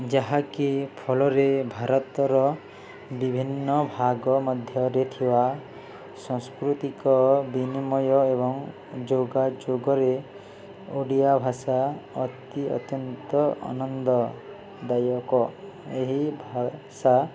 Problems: none marked